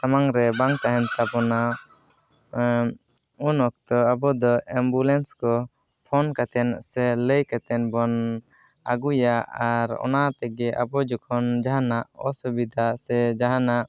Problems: constant background noise